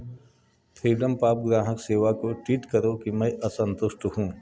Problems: continuous background conversations